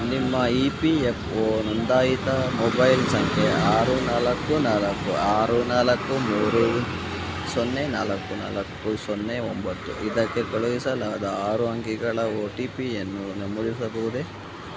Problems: background sounds at intervals